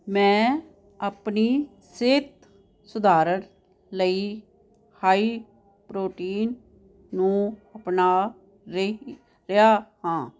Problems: none marked